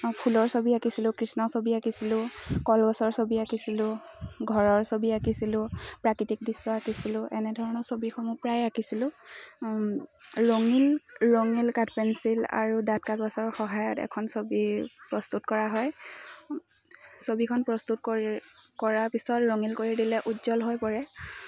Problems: constant background noise, continuous background conversations